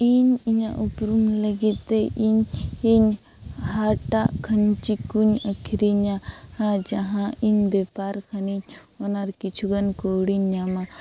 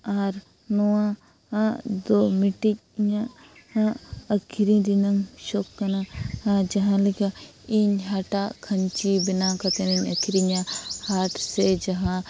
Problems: constant background noise